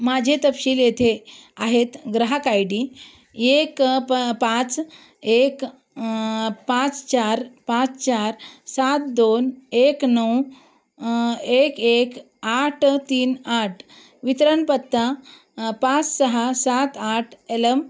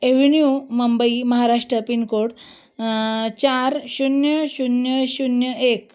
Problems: background sounds at intervals